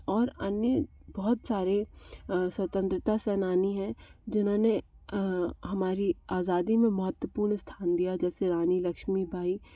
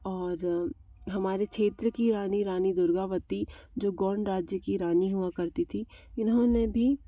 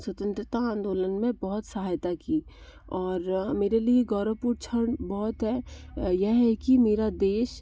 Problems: constant background noise